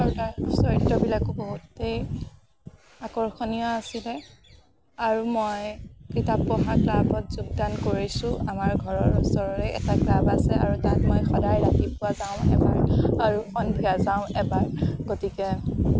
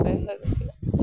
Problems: background sounds at intervals